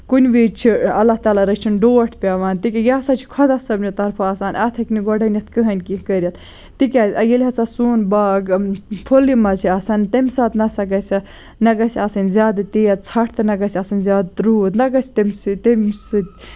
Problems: background sounds at intervals